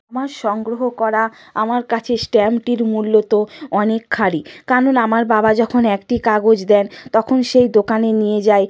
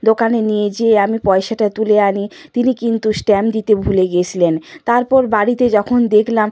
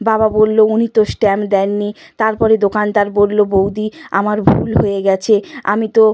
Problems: background sounds at intervals